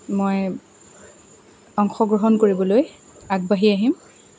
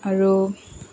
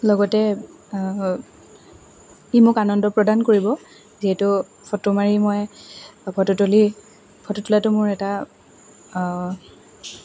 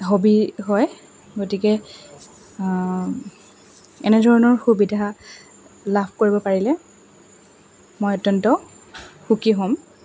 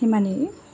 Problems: constant background noise, background conversations at intervals